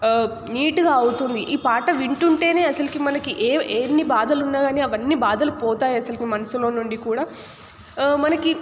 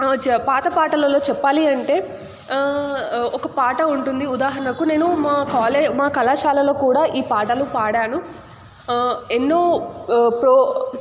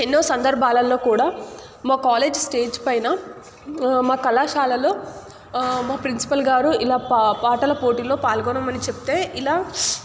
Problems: none marked